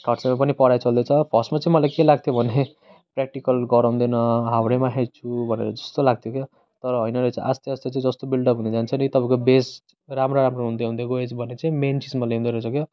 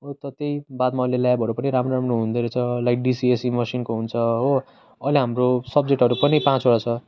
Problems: constant background noise